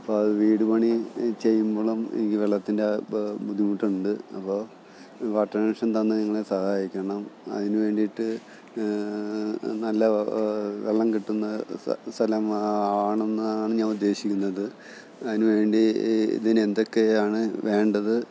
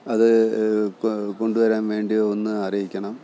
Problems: background sounds at intervals